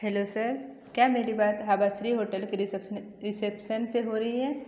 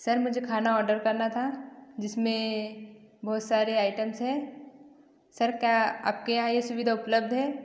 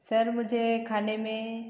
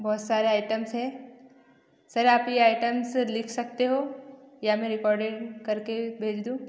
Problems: echo